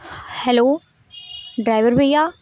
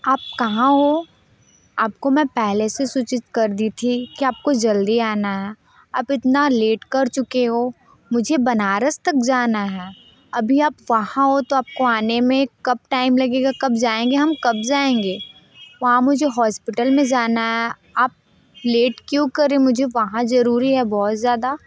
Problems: constant background noise